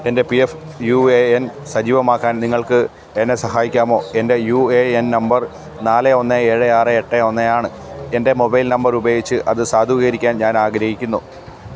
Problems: background sounds at intervals